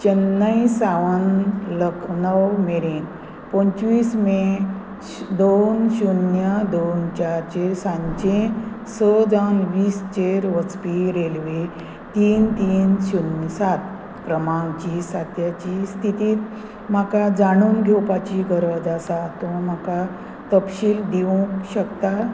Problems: constant background noise